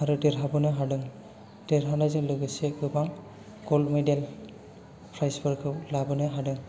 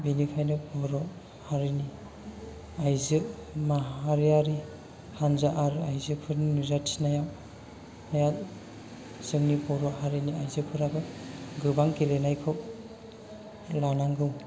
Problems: low volume